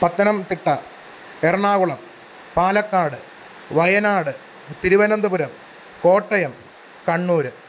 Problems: constant background noise